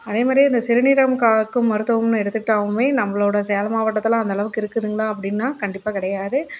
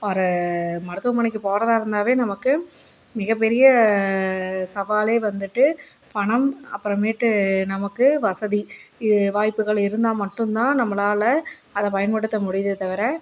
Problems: constant background noise